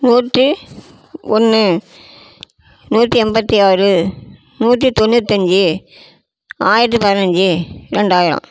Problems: none marked